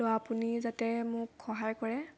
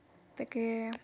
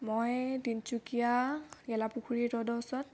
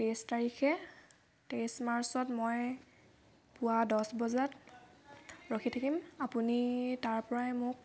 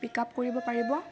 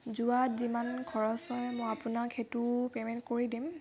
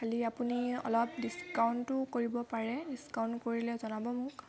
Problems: constant background noise, background conversations at intervals